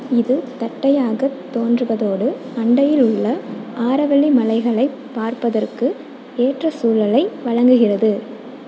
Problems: constant background noise